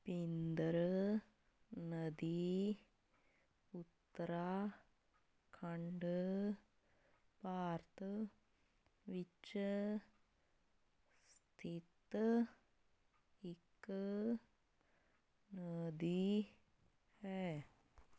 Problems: none marked